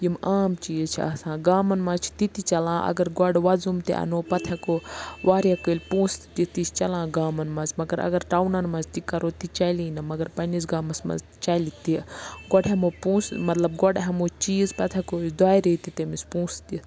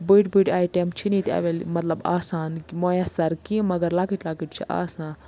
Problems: none marked